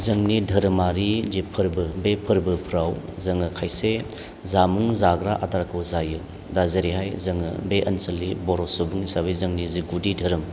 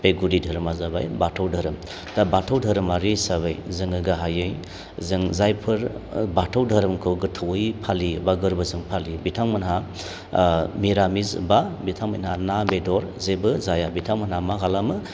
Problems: none marked